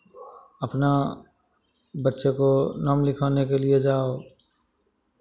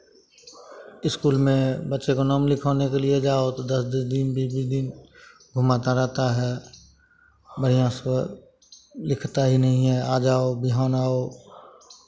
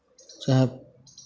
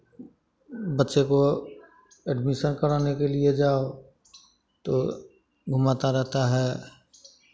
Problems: constant background noise, continuous background conversations